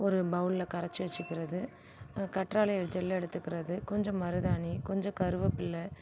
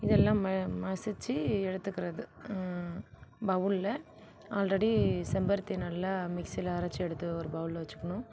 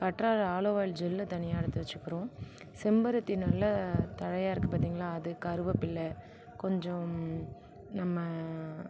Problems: none marked